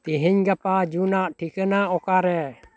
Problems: background conversations at intervals